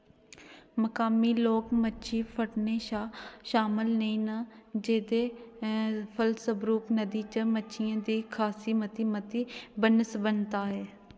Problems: background sounds at intervals, echo